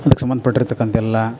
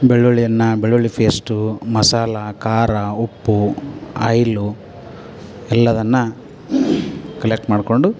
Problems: background sounds at intervals